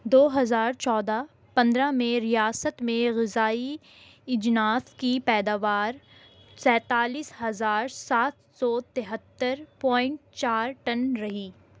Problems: constant background noise